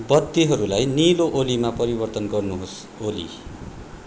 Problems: constant background noise